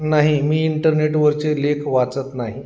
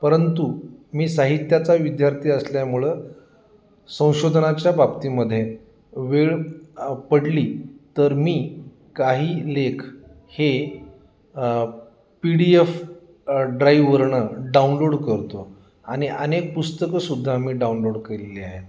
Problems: none marked